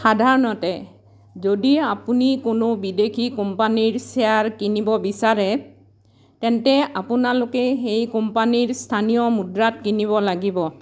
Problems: background sounds at intervals